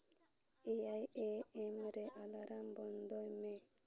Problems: background sounds at intervals